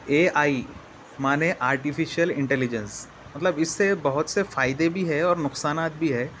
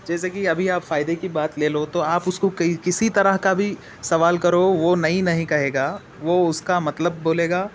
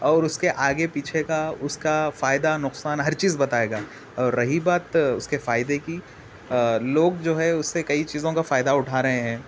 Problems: constant background noise